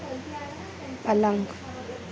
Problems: constant background noise, low volume